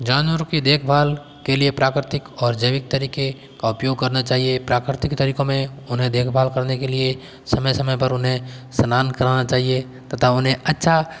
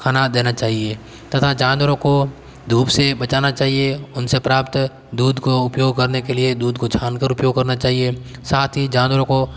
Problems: background sounds at intervals